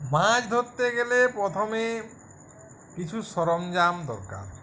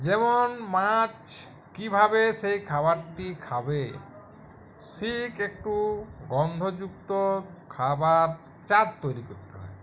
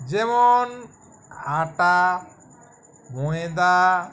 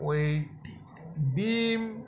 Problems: background sounds at intervals, continuous background conversations